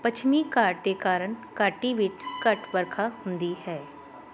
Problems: continuous background conversations